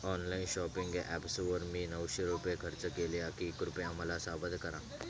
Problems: none marked